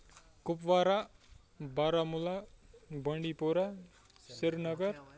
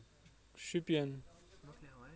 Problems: background sounds at intervals